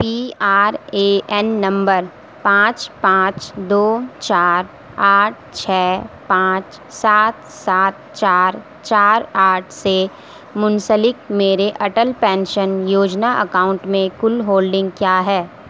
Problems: constant background noise